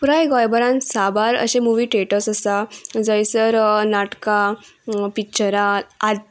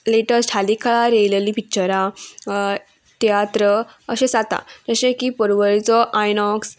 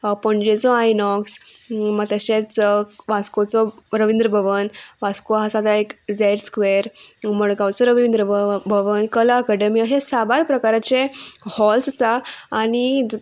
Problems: none marked